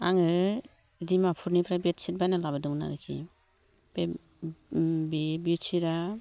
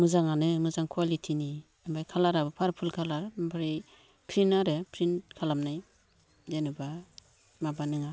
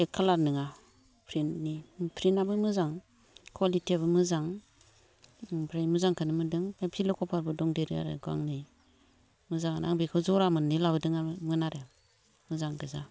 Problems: low volume